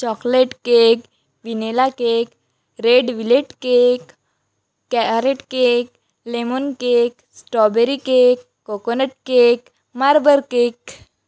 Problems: none marked